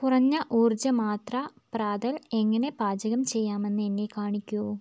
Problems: none marked